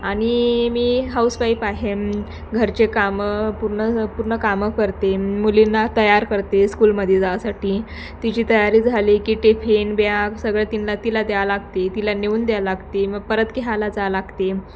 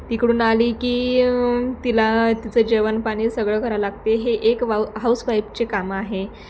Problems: constant background noise, background conversations at intervals, echo